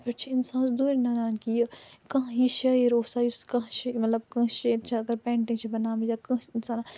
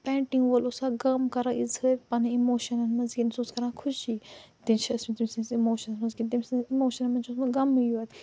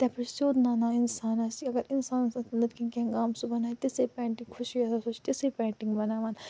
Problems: low volume